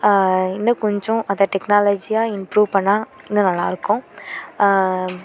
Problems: none marked